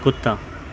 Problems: background sounds at intervals